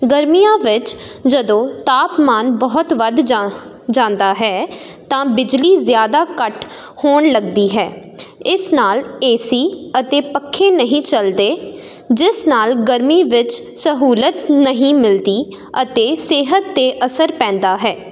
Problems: none marked